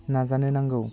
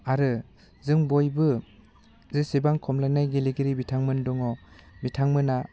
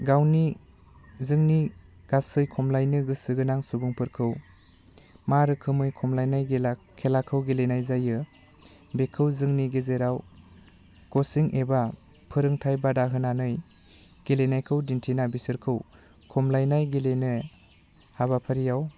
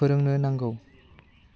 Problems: none marked